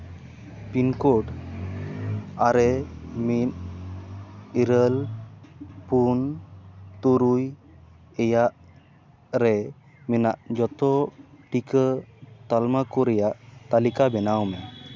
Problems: constant background noise